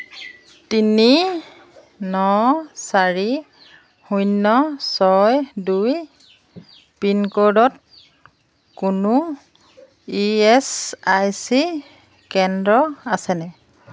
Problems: constant background noise